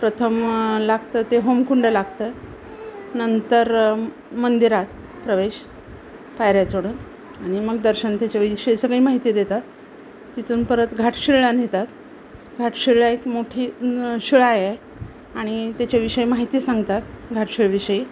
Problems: none marked